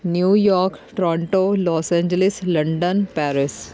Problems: background sounds at intervals, background conversations at intervals